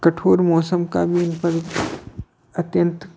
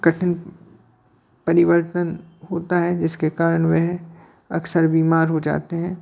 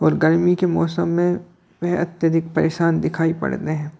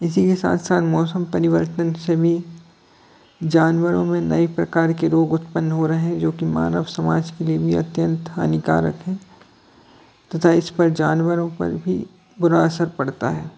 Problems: constant background noise, background conversations at intervals